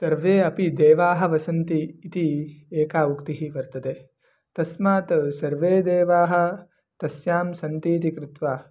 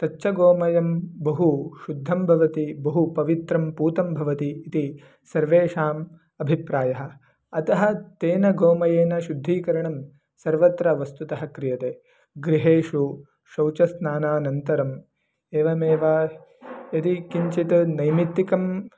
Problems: none marked